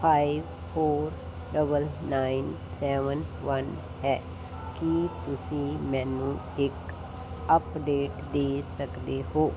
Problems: constant background noise